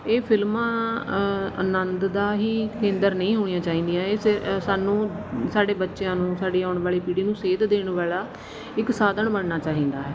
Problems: constant background noise